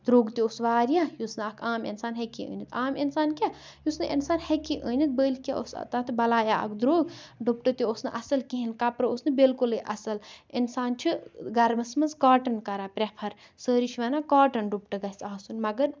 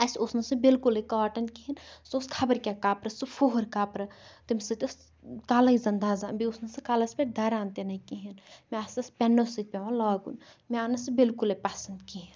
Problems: none marked